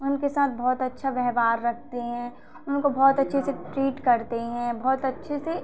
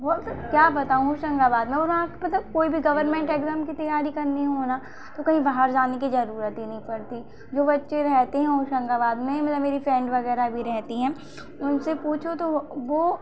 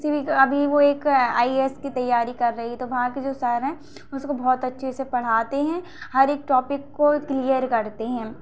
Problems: none marked